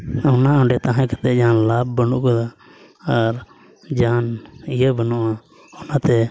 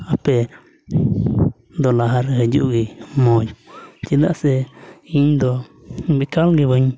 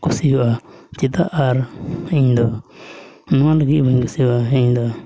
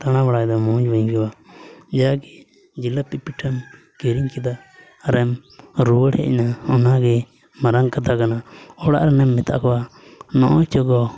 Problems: none marked